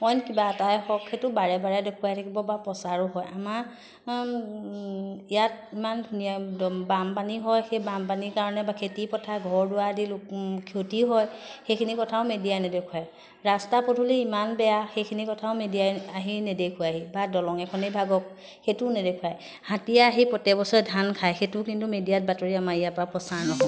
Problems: constant background noise